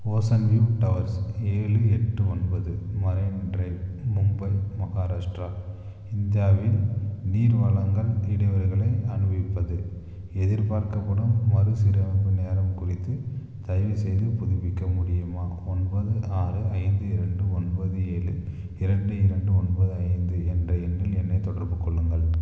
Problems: low volume